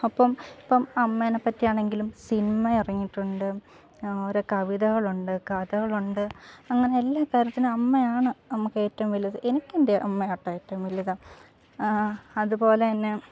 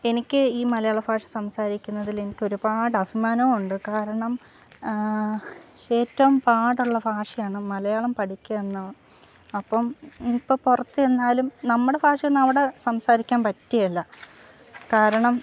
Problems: background sounds at intervals, low volume